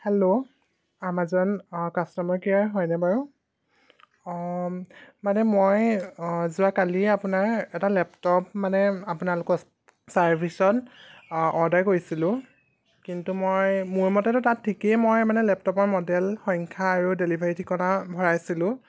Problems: none marked